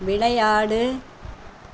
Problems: background sounds at intervals